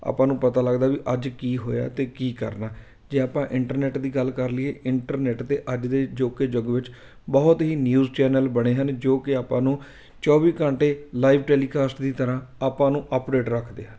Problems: background sounds at intervals